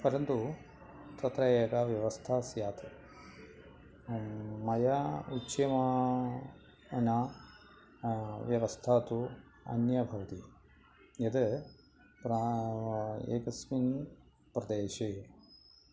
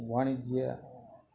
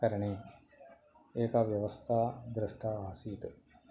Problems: background sounds at intervals